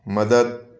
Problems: none marked